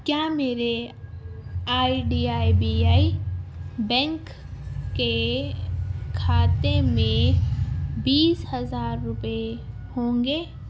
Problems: constant background noise